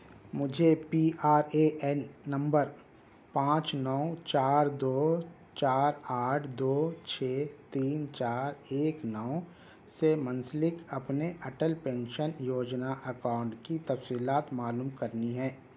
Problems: none marked